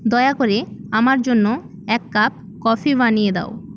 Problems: constant background noise